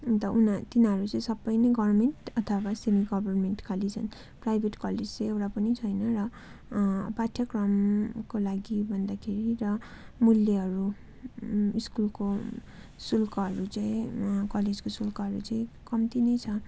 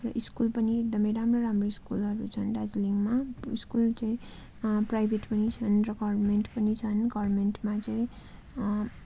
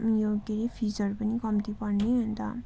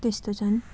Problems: continuous background conversations